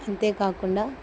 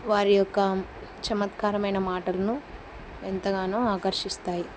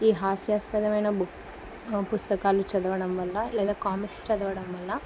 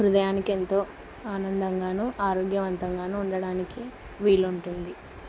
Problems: none marked